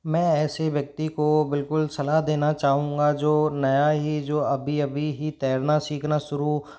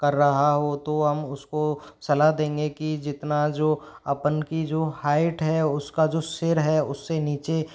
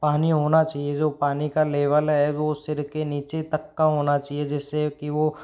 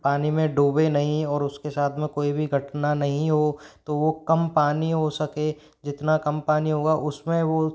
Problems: background sounds at intervals